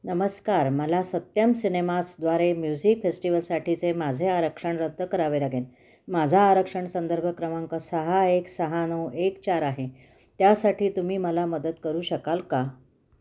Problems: constant background noise